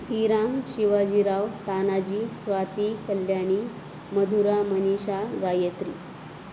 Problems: constant background noise